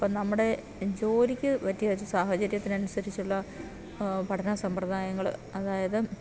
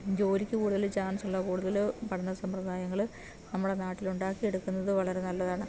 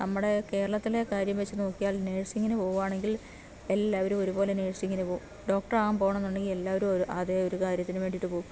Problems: background sounds at intervals